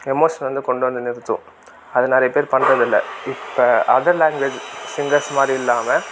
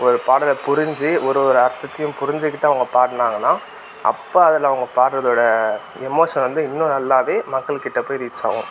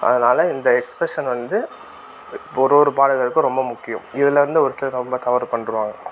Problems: constant background noise